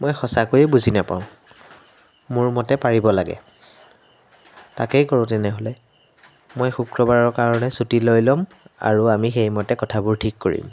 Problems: background sounds at intervals